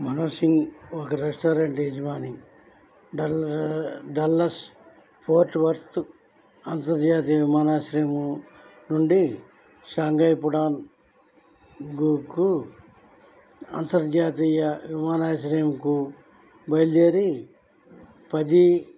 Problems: low volume